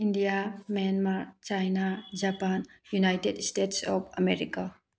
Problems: none marked